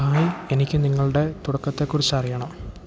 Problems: none marked